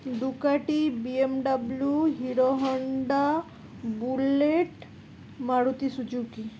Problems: constant background noise